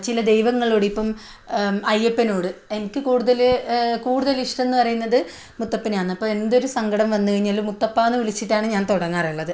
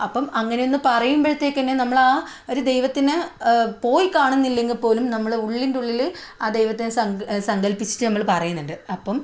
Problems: none marked